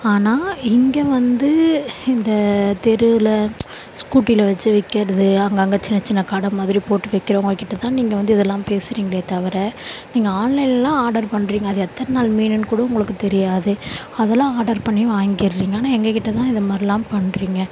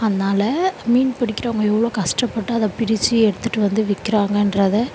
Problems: none marked